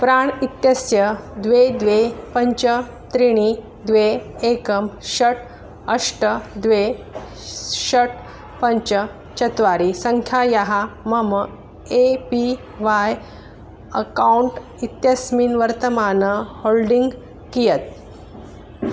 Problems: background sounds at intervals